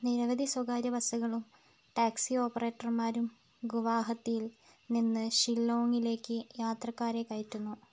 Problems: low volume